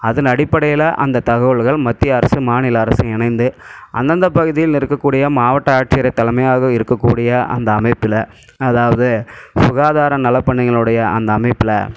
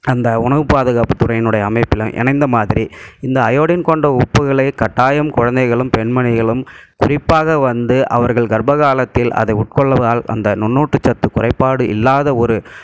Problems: none marked